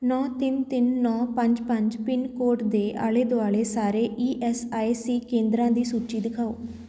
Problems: background conversations at intervals